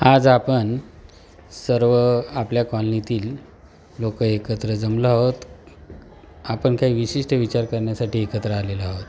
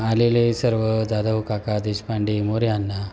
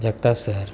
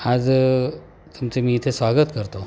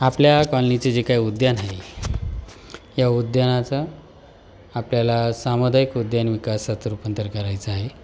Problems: constant background noise